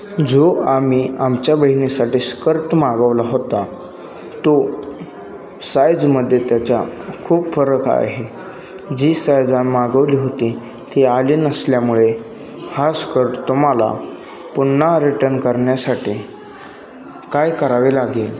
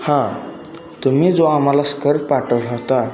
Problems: continuous background conversations